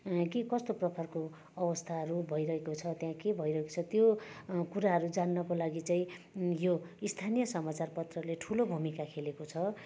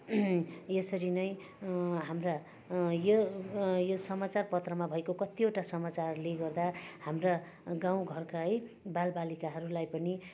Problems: constant background noise